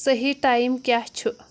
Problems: continuous background conversations